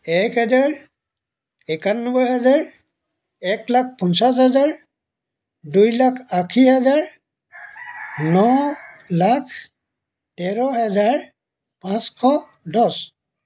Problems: background sounds at intervals